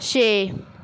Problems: background sounds at intervals